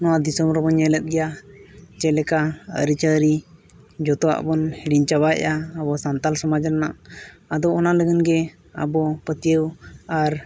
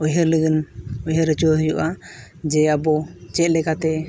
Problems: constant background noise, background conversations at intervals